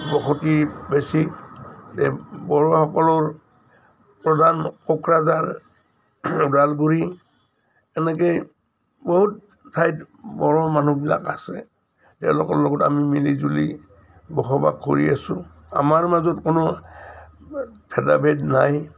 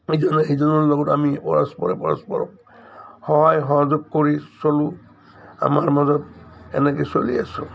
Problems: none marked